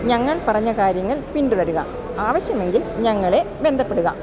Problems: constant background noise